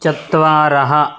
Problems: none marked